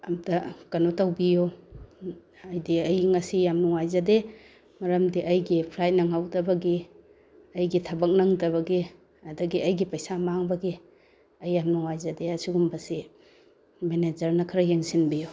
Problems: none marked